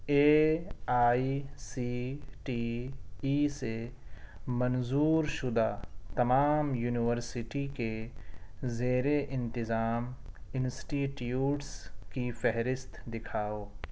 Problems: none marked